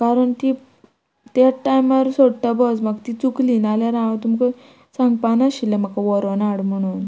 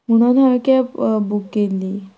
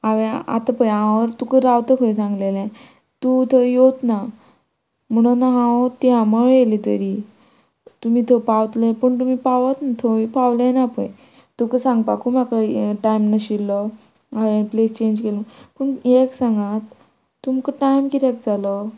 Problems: none marked